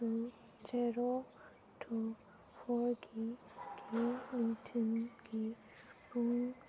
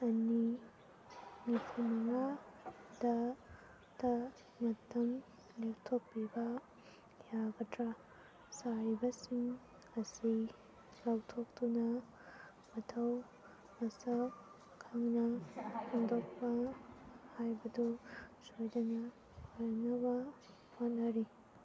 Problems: continuous background conversations, low volume